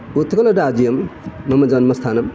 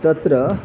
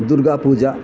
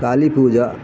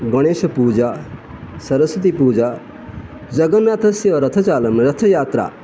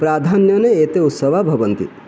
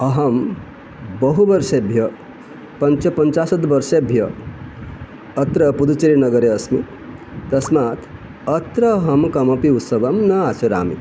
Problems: constant background noise